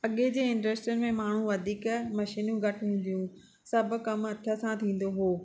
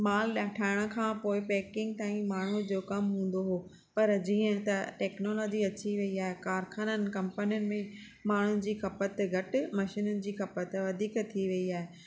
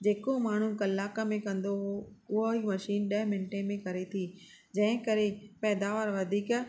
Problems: none marked